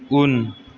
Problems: none marked